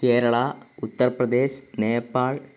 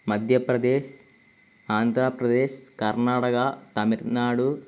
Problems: none marked